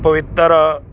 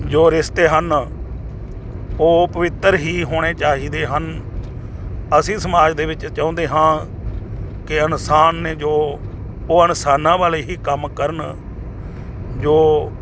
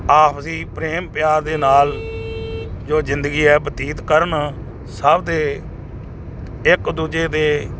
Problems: constant background noise